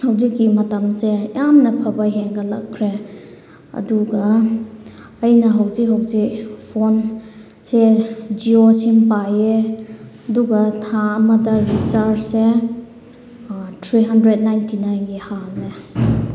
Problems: background sounds at intervals